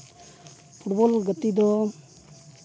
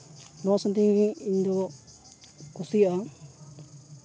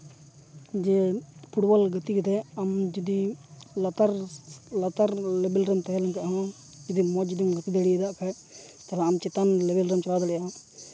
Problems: none marked